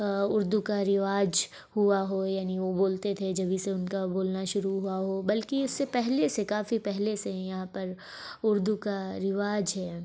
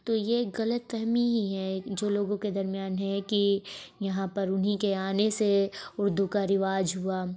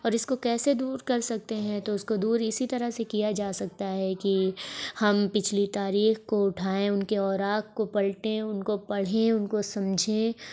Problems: background sounds at intervals, background conversations at intervals